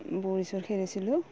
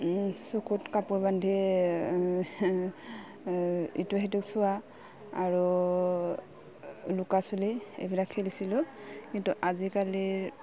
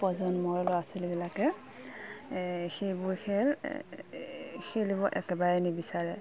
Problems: none marked